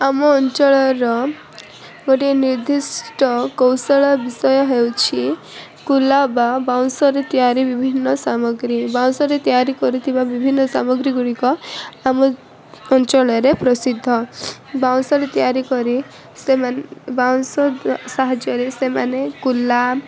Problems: constant background noise, continuous background conversations